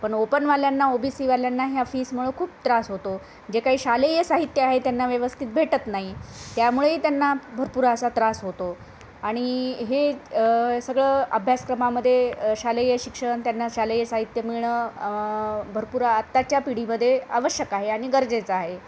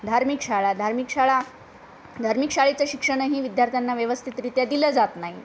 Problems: constant background noise